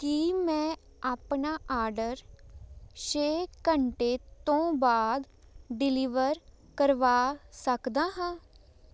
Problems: constant background noise